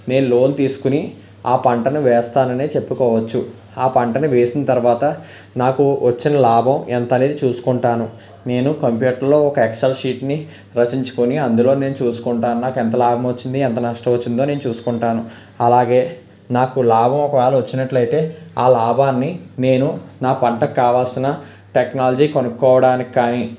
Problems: background sounds at intervals